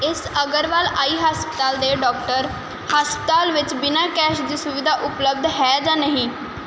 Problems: none marked